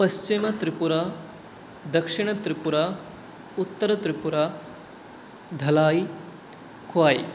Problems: none marked